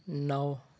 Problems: none marked